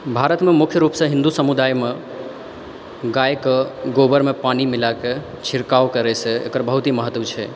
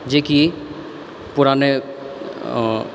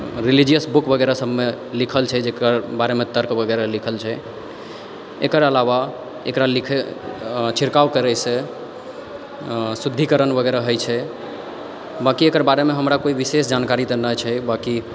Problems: background sounds at intervals